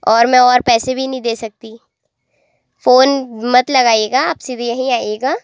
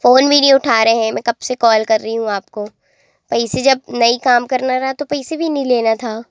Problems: none marked